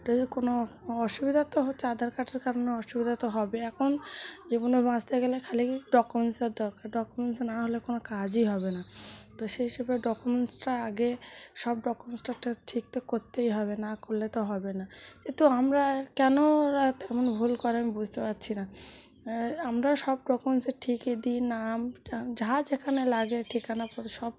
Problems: none marked